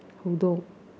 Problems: low volume